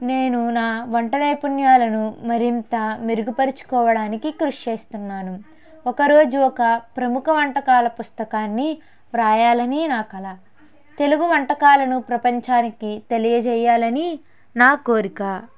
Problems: none marked